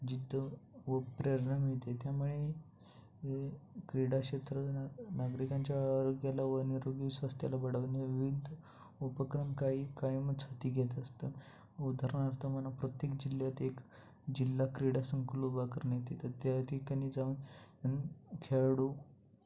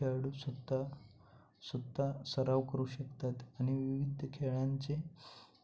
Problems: constant background noise